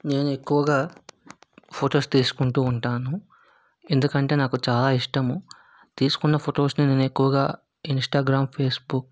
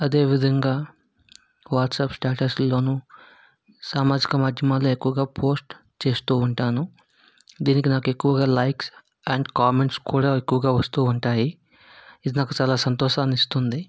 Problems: background sounds at intervals